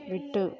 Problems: background sounds at intervals